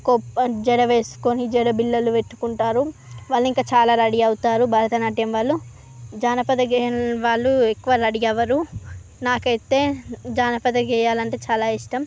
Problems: none marked